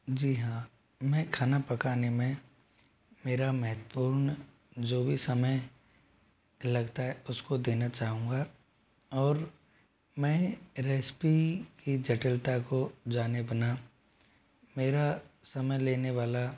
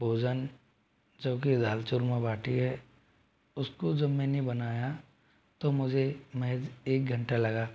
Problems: low volume